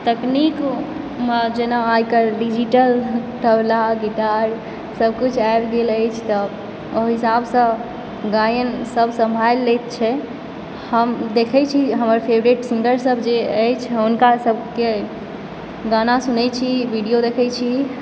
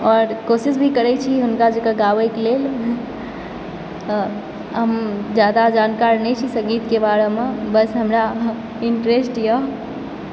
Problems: background sounds at intervals